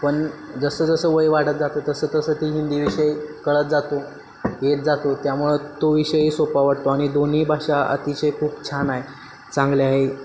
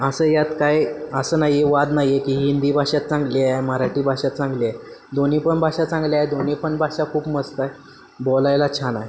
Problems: constant background noise